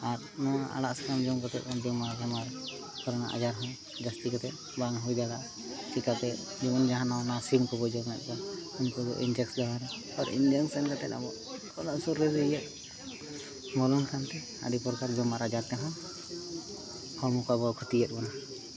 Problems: continuous background conversations